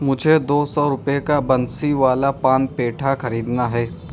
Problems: constant background noise